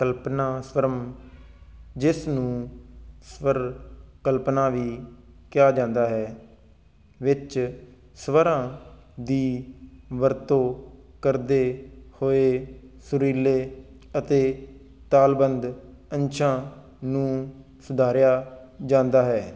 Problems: constant background noise